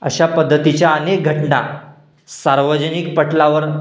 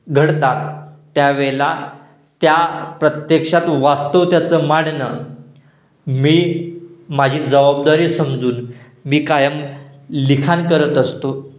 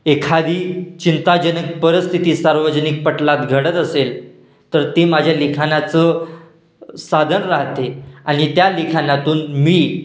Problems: constant background noise, echo